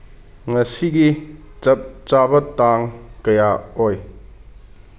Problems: none marked